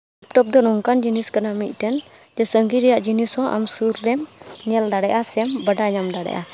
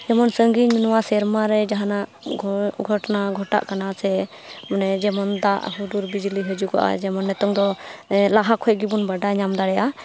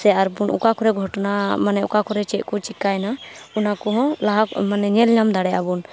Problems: background sounds at intervals